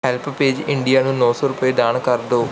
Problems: background sounds at intervals